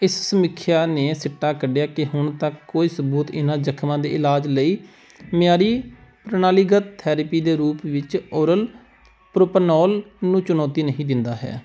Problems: background sounds at intervals